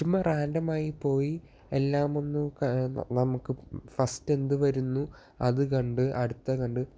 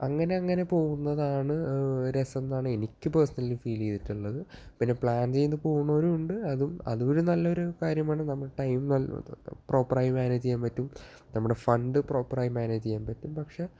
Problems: low volume